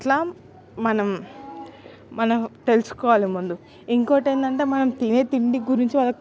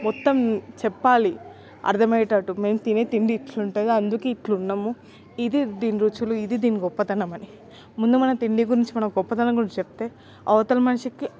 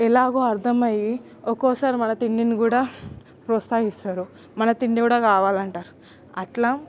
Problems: constant background noise, background conversations at intervals